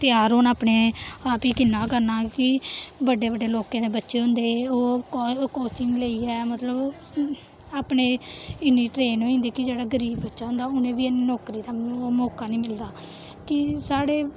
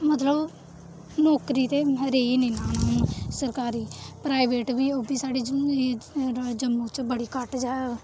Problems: constant background noise